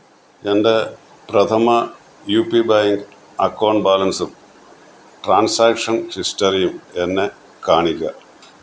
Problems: background sounds at intervals